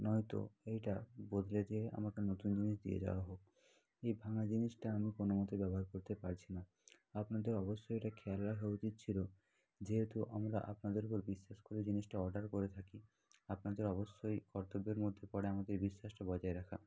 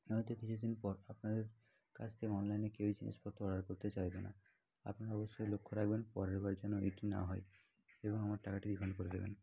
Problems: continuous background conversations, low volume